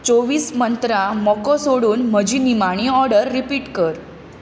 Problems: constant background noise